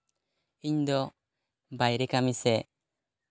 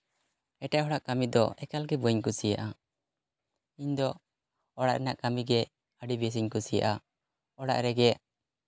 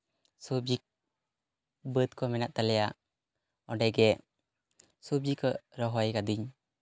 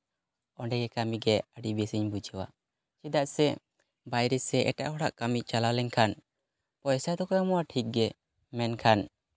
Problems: none marked